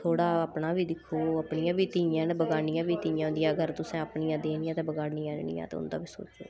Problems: constant background noise